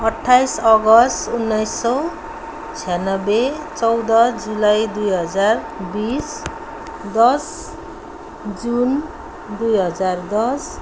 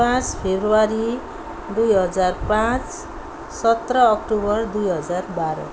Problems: constant background noise